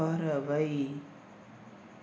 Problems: constant background noise